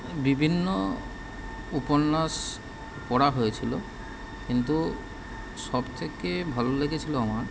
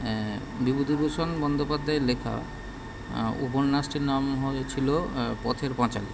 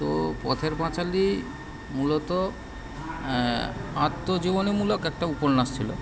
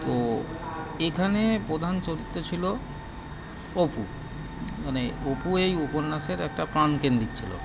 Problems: background sounds at intervals